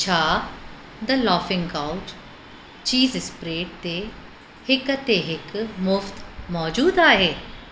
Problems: constant background noise, echo